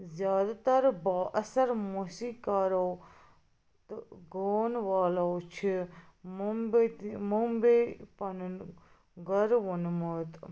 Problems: background sounds at intervals